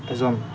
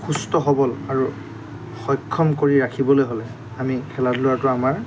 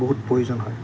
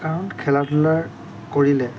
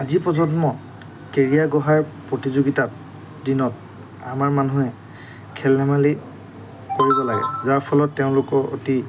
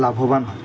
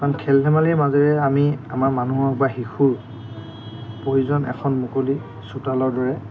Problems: constant background noise